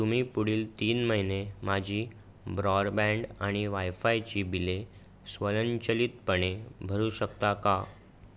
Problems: none marked